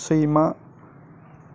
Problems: constant background noise